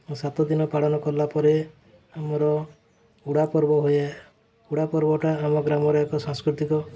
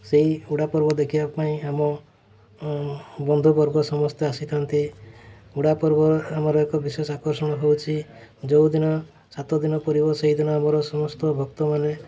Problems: constant background noise